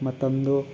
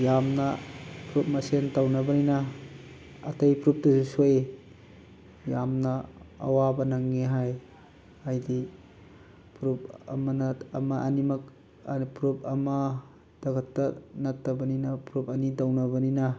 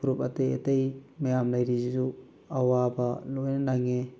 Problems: constant background noise